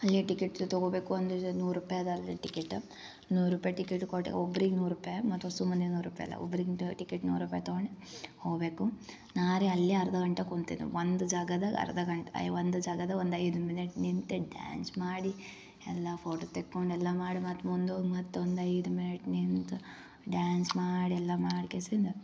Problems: none marked